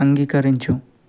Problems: none marked